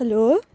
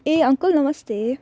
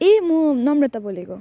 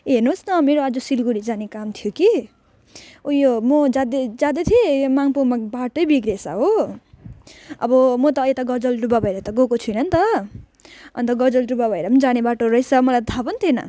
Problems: none marked